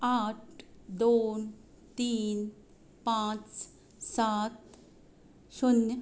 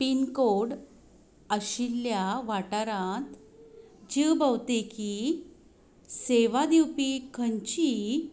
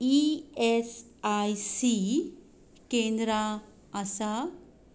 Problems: constant background noise